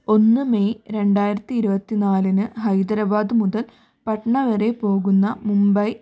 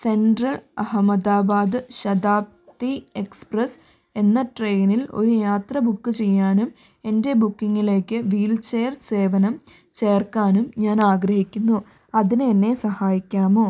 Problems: none marked